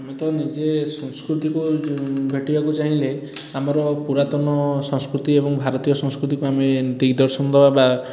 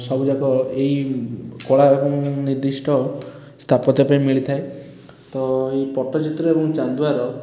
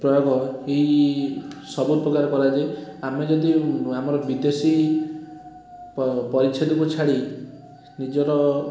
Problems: constant background noise